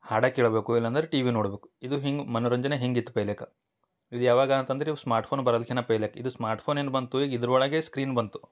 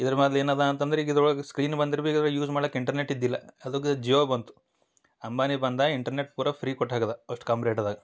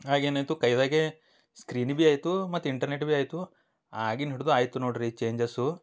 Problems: none marked